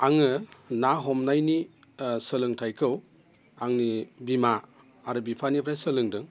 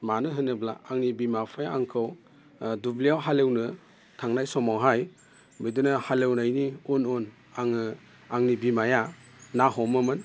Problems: constant background noise